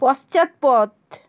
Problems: none marked